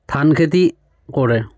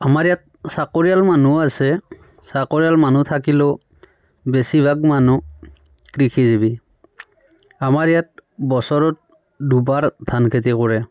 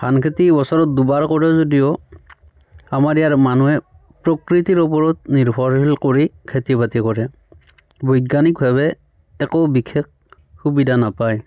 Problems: background sounds at intervals, continuous background conversations